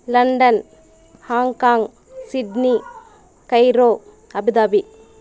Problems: background conversations at intervals